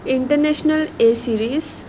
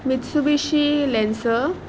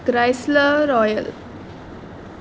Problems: constant background noise